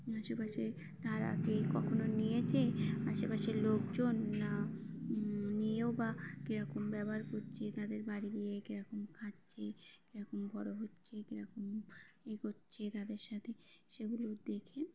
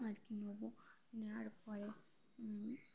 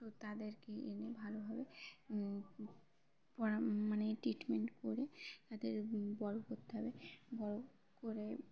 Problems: constant background noise, continuous background conversations